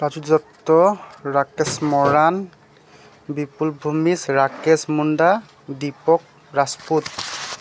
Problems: background sounds at intervals